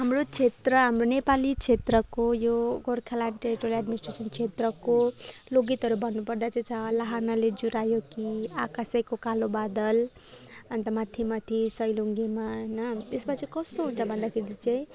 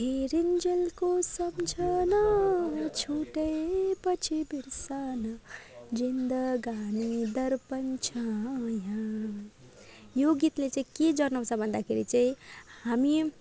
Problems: background sounds at intervals, background conversations at intervals